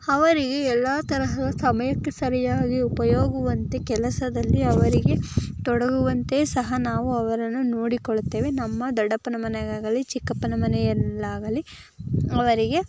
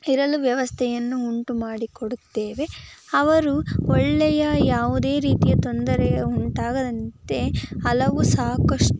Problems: constant background noise